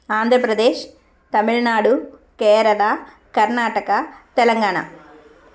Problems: constant background noise, background conversations at intervals